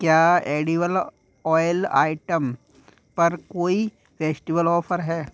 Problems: background sounds at intervals